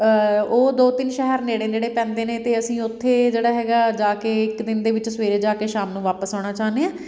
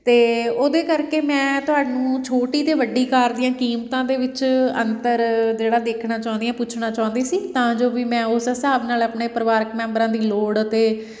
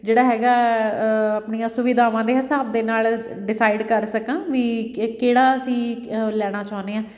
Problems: background sounds at intervals, background conversations at intervals